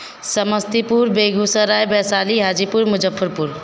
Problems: none marked